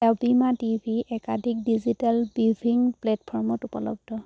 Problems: none marked